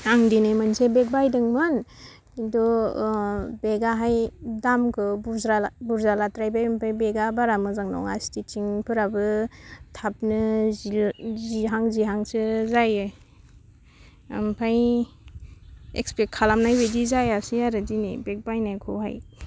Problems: none marked